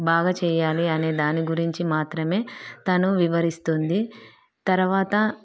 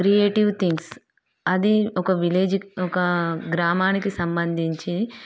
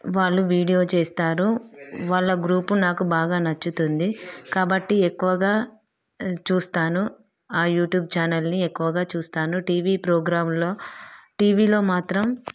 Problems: background sounds at intervals, background conversations at intervals